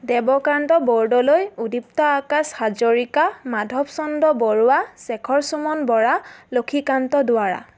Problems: none marked